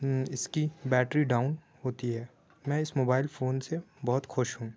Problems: none marked